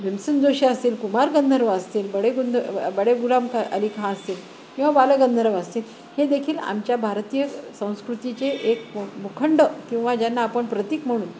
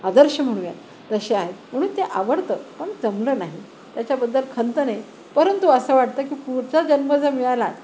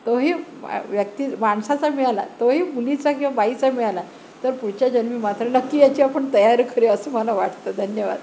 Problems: constant background noise, background conversations at intervals